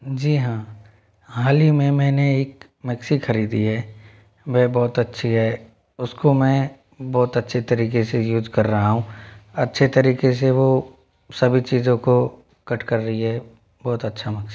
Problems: background sounds at intervals, echo